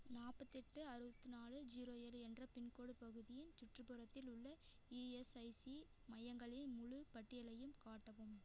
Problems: none marked